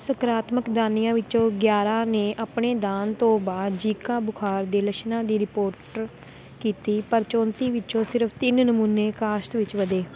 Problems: constant background noise